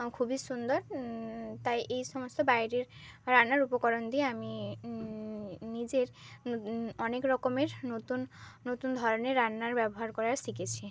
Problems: none marked